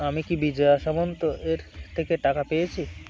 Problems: none marked